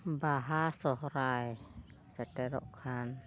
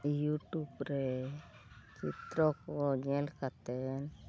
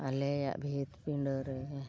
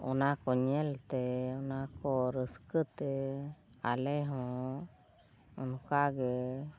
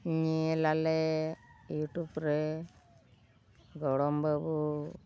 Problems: constant background noise, low volume